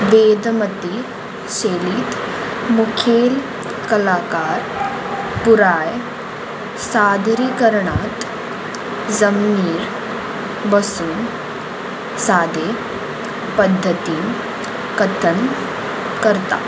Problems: constant background noise